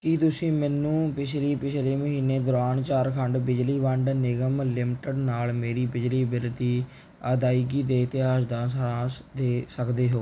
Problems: none marked